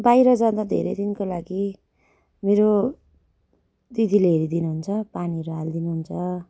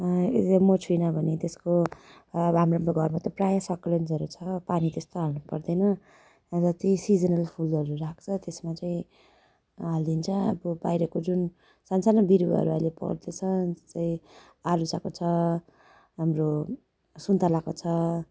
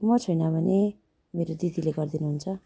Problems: none marked